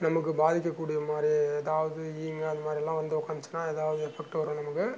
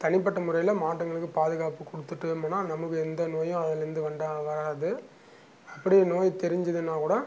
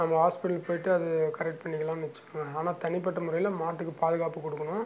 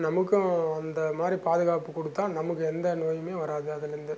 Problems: none marked